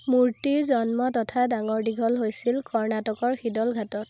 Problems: constant background noise